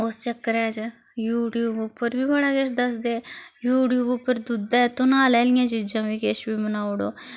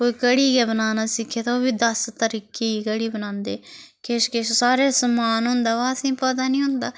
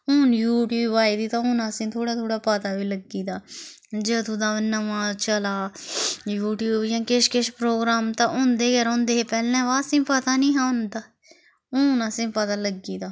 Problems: constant background noise